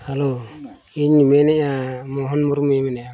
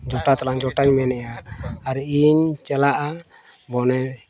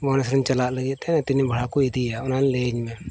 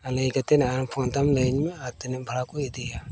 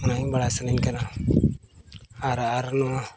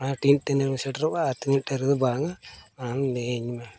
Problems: constant background noise, background conversations at intervals